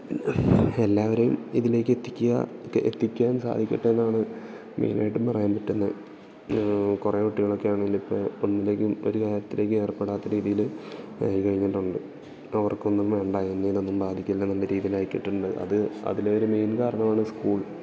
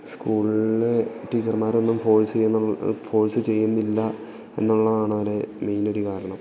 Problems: background sounds at intervals, background conversations at intervals